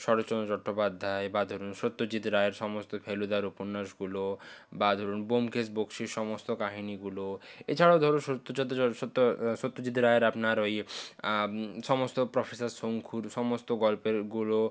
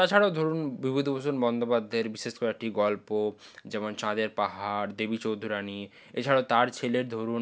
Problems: none marked